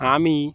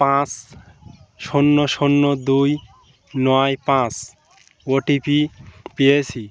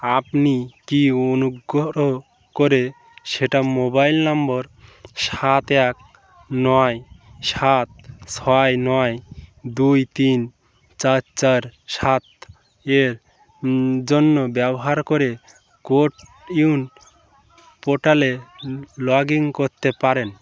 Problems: background sounds at intervals, continuous background conversations